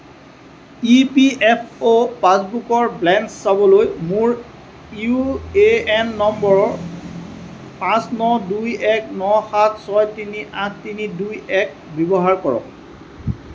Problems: constant background noise